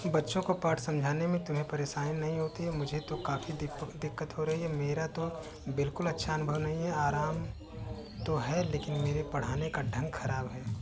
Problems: background sounds at intervals